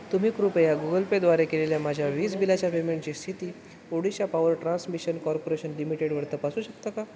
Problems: constant background noise